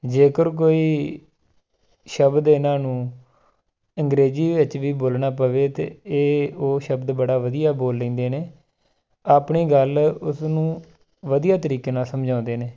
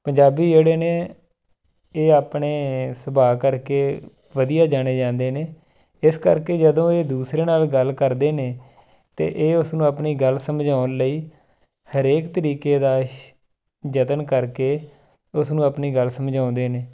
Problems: none marked